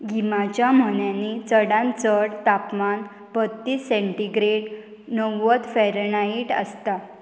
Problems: none marked